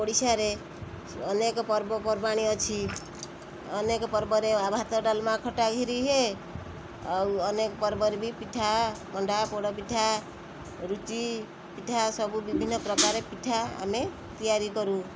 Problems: constant background noise